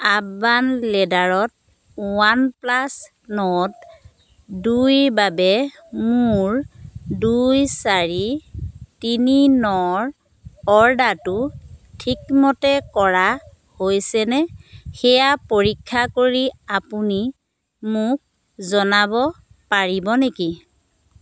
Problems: none marked